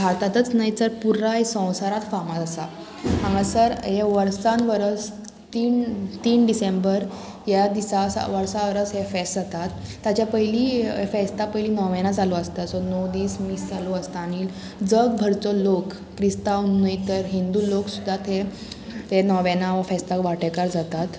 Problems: constant background noise